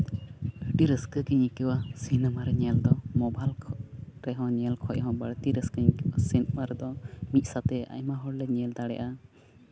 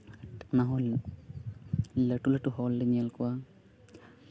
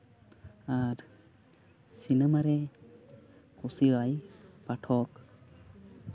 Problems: constant background noise